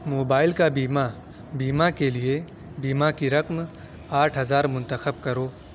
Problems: none marked